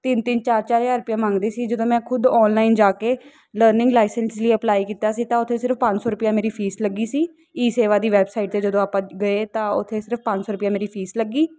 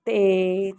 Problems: none marked